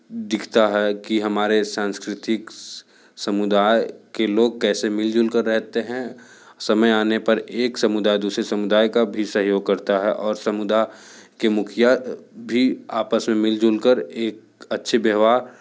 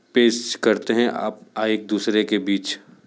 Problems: none marked